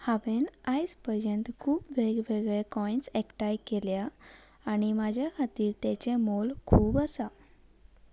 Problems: none marked